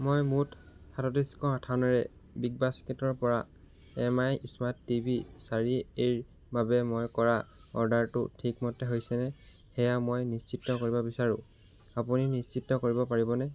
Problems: background sounds at intervals